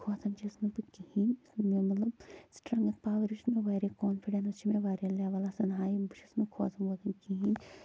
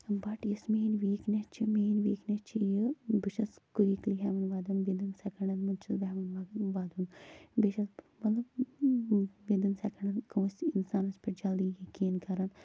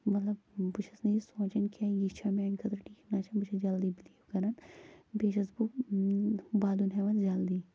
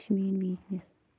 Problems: constant background noise, low volume